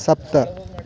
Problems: none marked